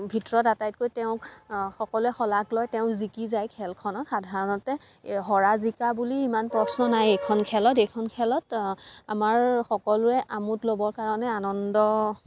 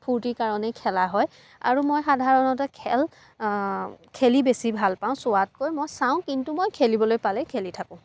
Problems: background sounds at intervals